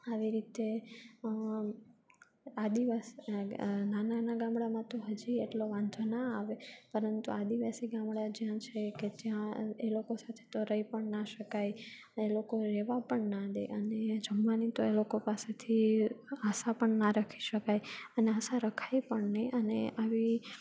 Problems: constant background noise